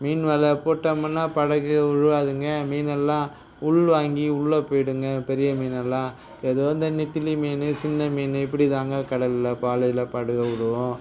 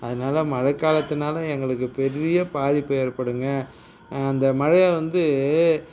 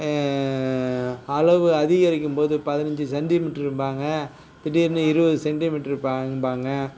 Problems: background sounds at intervals